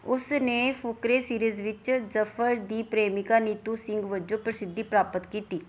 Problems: background sounds at intervals